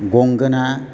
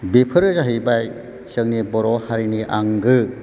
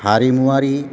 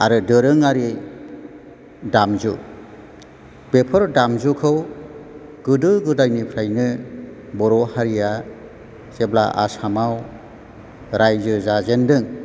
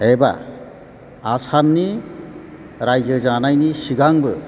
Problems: background sounds at intervals